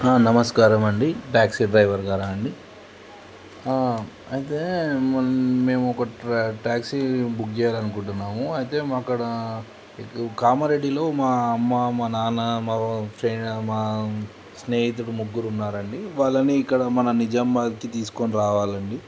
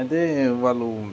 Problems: none marked